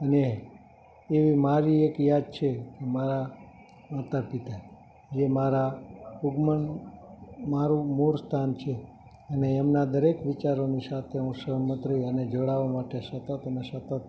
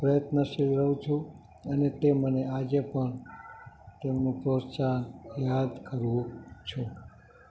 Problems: constant background noise